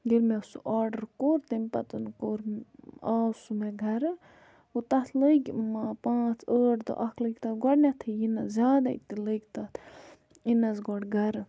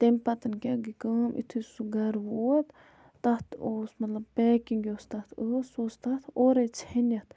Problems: none marked